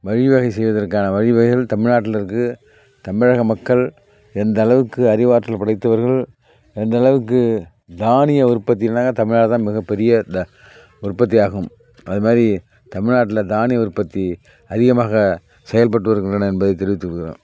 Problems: background sounds at intervals